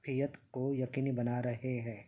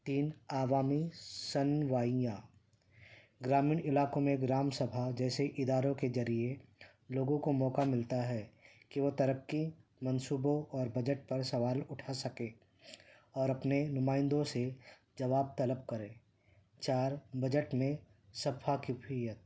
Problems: constant background noise